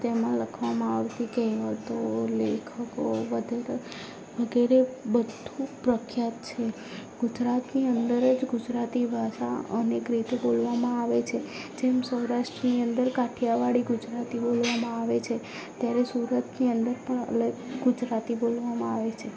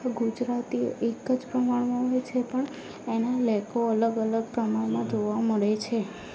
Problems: background sounds at intervals, low volume